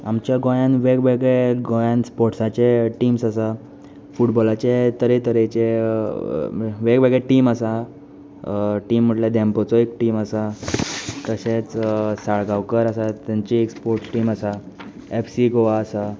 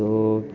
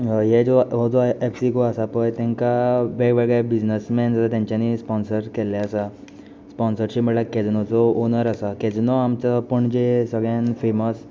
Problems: constant background noise